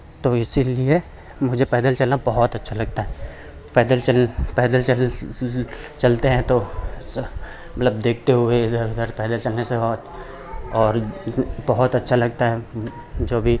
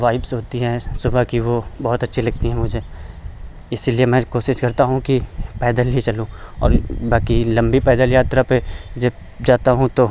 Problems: none marked